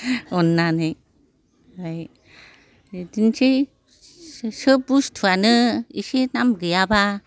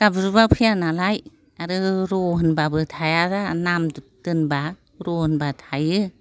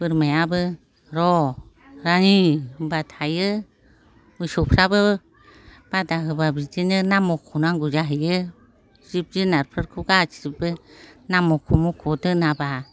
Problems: none marked